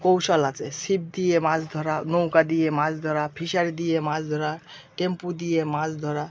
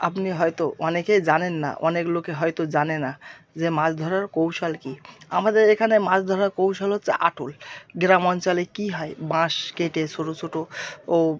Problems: background sounds at intervals